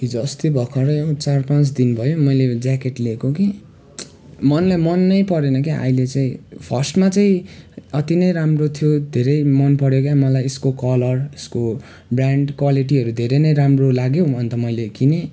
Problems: none marked